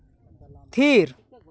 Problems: background sounds at intervals